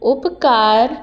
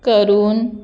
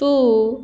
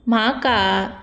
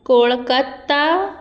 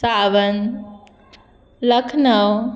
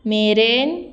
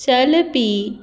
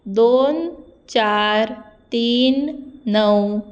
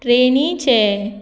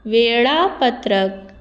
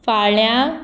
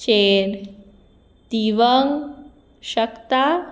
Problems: constant background noise